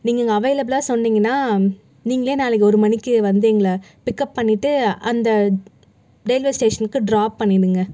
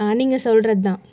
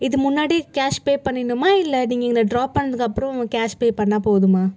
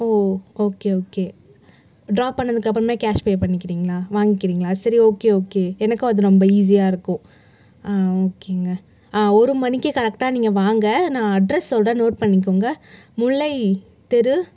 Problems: none marked